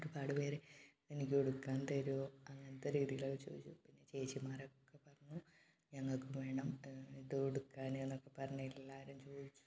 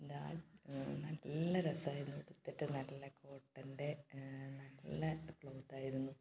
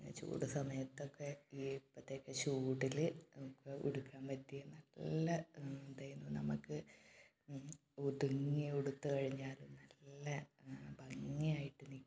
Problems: low volume